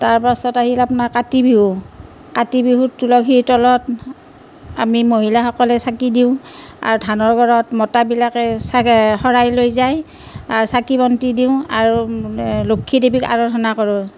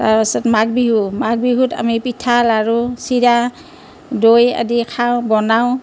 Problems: constant background noise